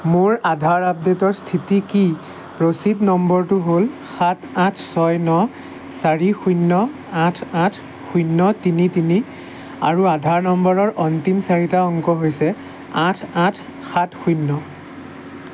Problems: constant background noise